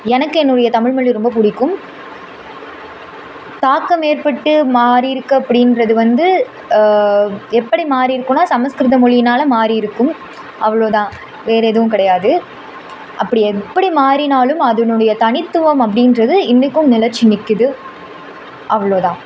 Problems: constant background noise